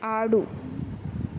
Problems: constant background noise